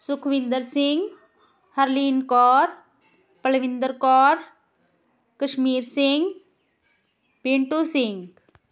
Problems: background sounds at intervals